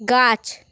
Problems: constant background noise